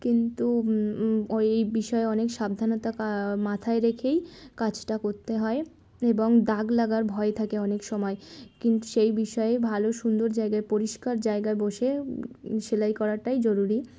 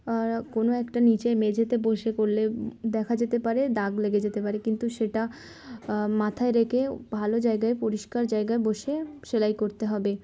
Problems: constant background noise, background conversations at intervals